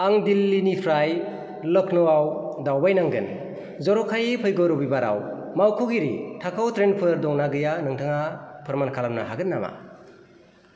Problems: constant background noise